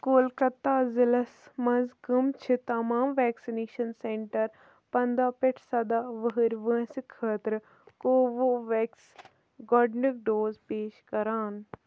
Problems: low volume